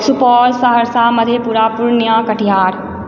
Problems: background conversations at intervals